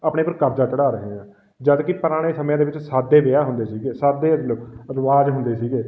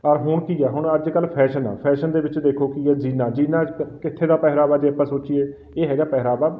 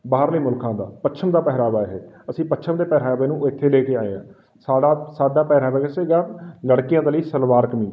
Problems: none marked